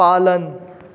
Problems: constant background noise